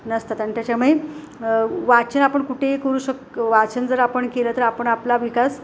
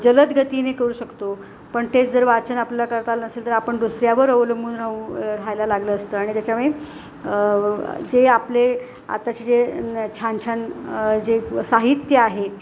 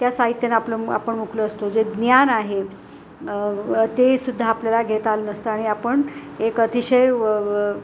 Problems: constant background noise